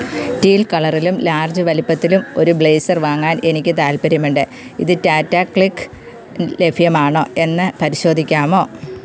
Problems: constant background noise